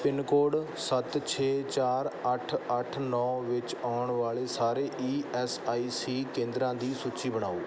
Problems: background sounds at intervals